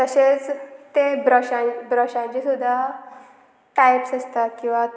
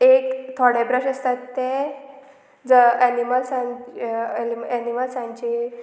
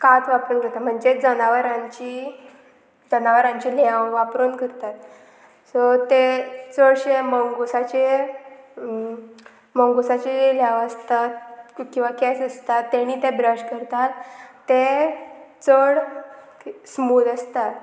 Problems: none marked